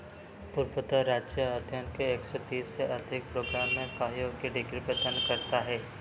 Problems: none marked